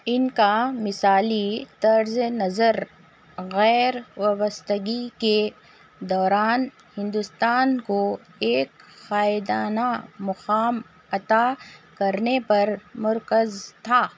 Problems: none marked